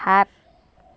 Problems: background sounds at intervals